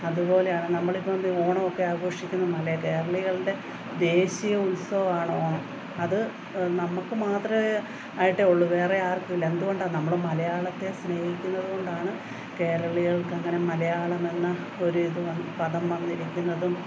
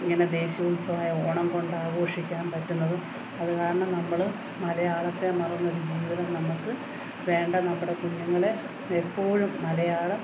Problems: background sounds at intervals